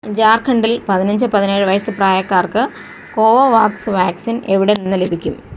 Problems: constant background noise